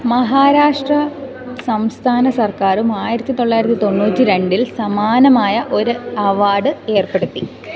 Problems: continuous background conversations